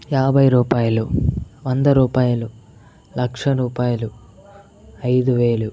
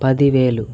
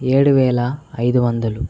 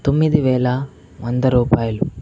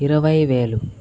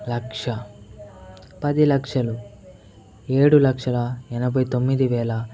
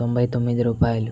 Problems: background conversations at intervals